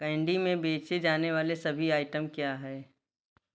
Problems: none marked